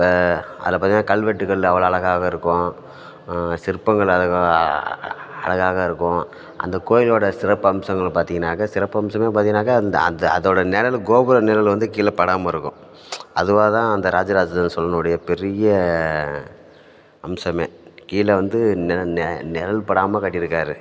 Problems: constant background noise, background conversations at intervals